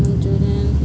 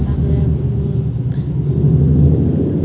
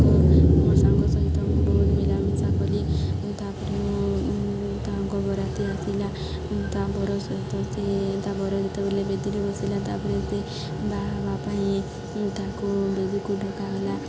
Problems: constant background noise, continuous background conversations